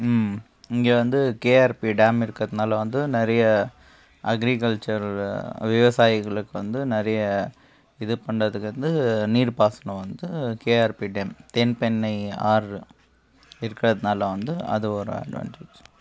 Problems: background sounds at intervals